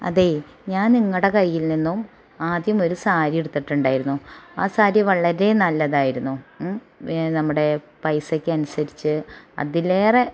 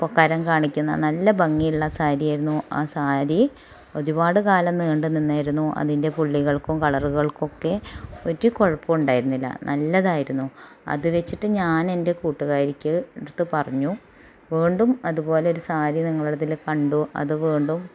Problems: background sounds at intervals